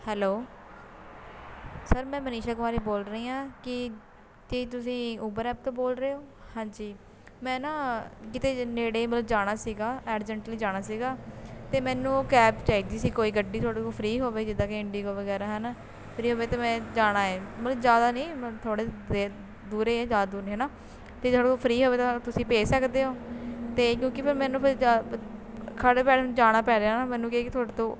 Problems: constant background noise